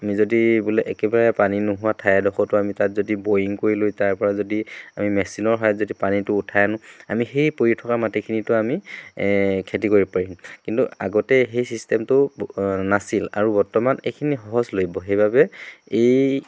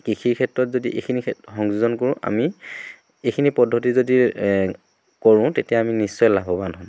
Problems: none marked